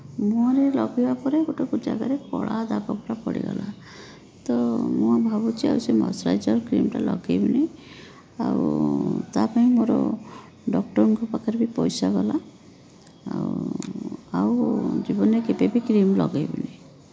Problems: background sounds at intervals